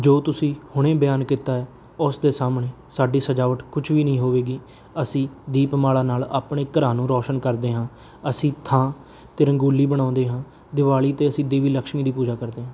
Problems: background sounds at intervals